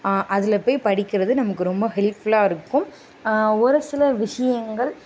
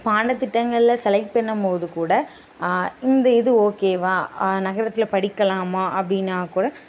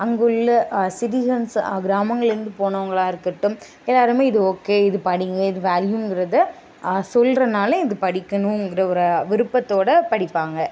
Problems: none marked